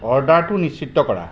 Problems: background sounds at intervals